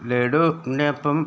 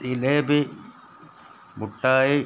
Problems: background sounds at intervals